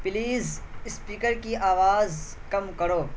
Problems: constant background noise